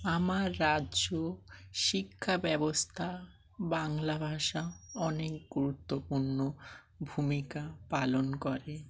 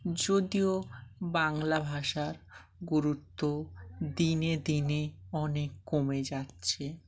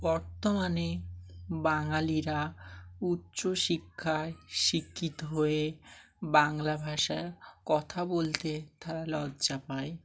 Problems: none marked